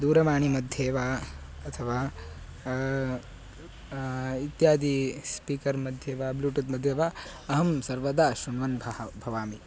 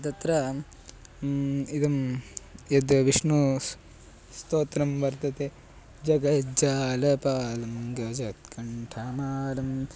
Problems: none marked